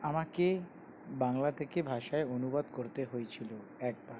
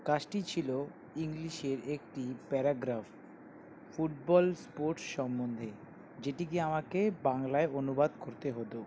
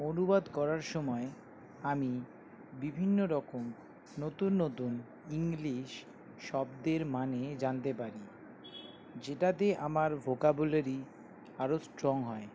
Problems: constant background noise